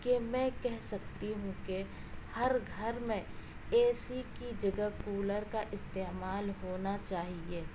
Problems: constant background noise, low volume